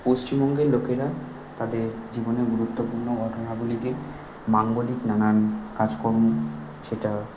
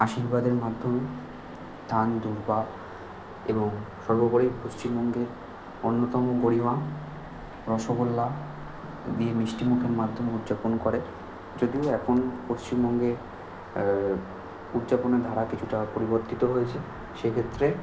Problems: constant background noise